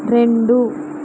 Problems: constant background noise